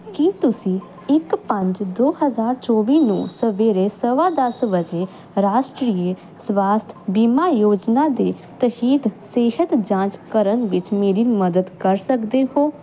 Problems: none marked